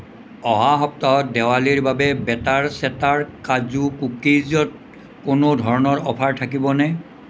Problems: none marked